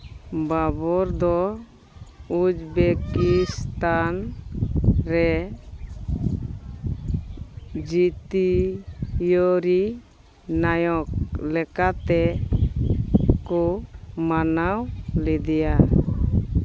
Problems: background sounds at intervals